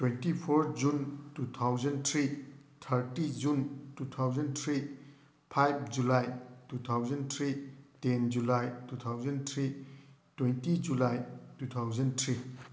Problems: none marked